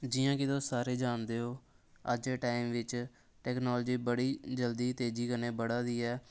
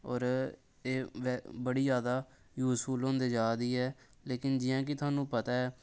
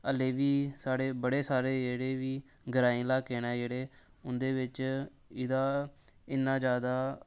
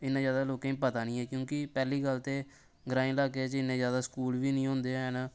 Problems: none marked